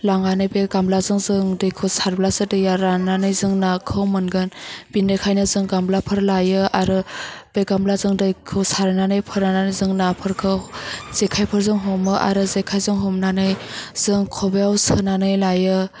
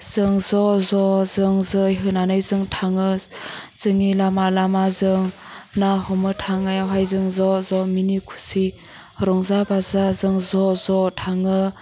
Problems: none marked